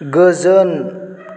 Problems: none marked